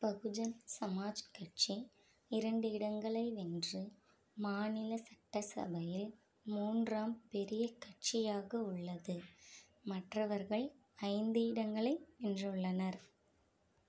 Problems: low volume